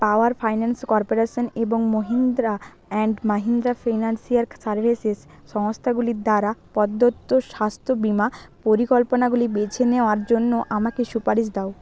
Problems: background sounds at intervals, continuous background conversations